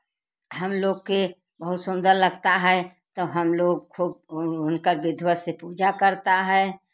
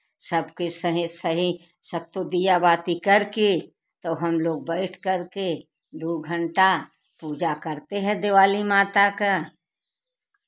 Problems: background sounds at intervals